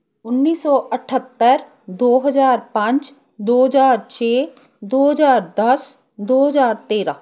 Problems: background sounds at intervals